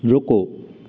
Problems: constant background noise